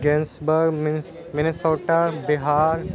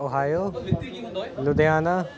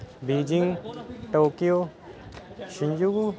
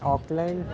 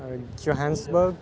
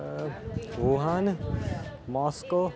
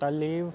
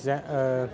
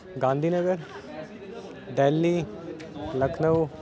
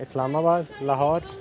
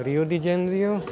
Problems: continuous background conversations